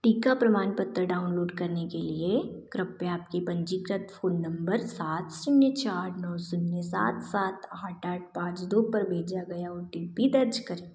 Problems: none marked